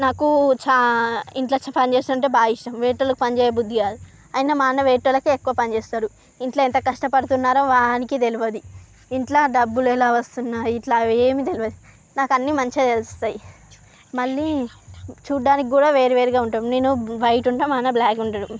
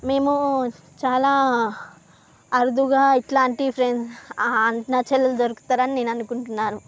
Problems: none marked